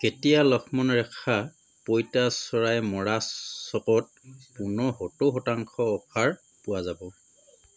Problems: constant background noise